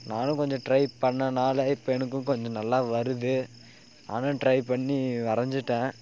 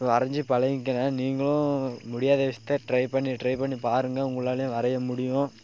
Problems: constant background noise